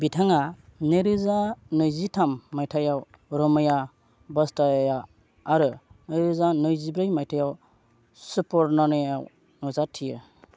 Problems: none marked